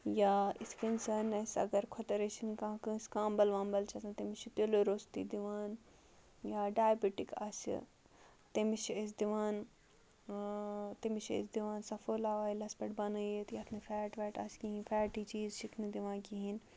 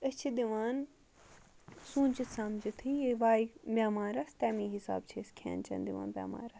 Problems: background sounds at intervals